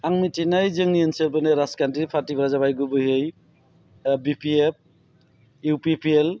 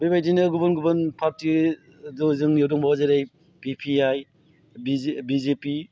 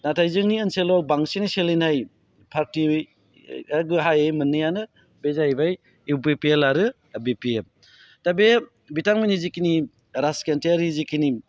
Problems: low volume